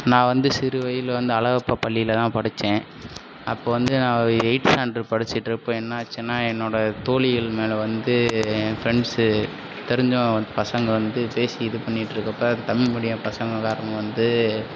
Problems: constant background noise